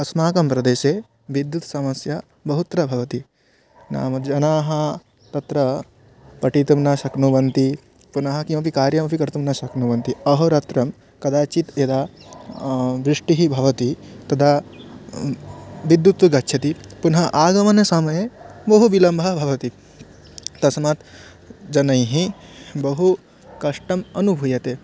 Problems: constant background noise